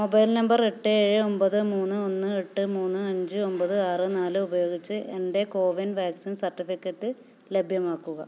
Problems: low volume